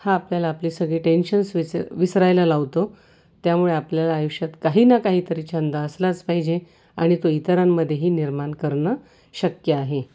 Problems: constant background noise